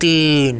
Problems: none marked